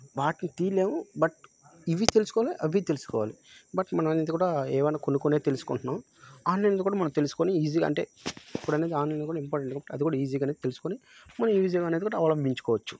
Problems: background sounds at intervals